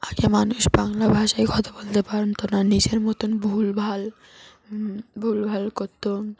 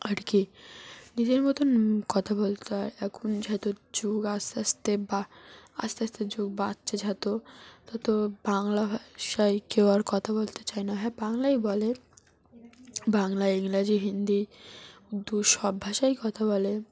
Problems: background sounds at intervals